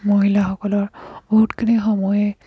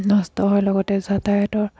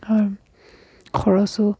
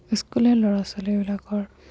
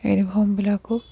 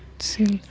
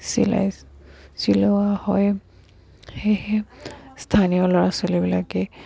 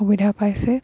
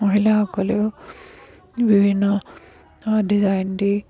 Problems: background sounds at intervals